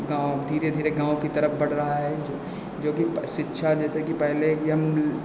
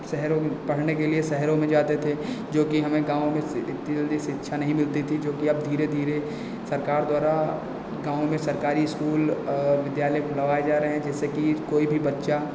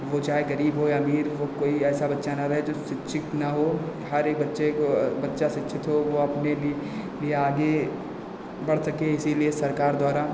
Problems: constant background noise, echo